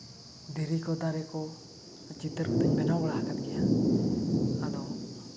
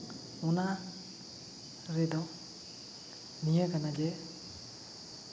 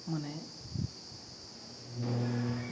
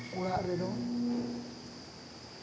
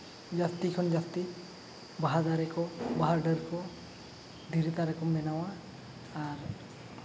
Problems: background sounds at intervals